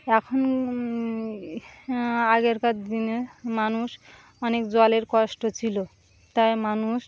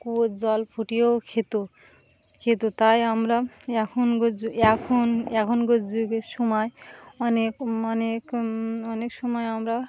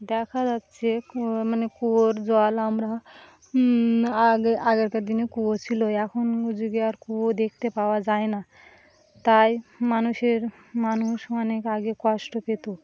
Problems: constant background noise